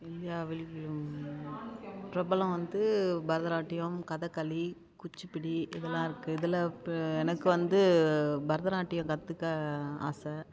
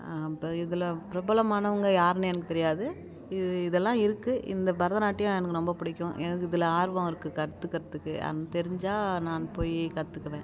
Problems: background sounds at intervals